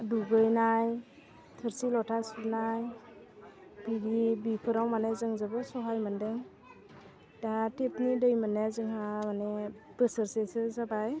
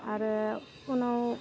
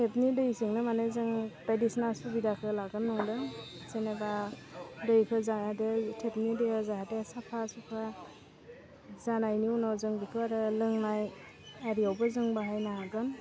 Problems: none marked